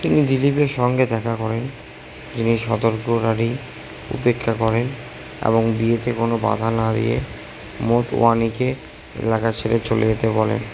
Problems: constant background noise, low volume